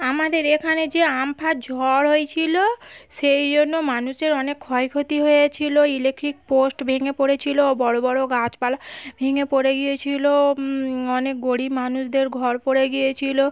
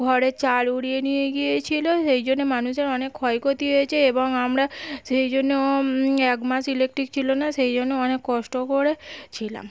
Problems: background sounds at intervals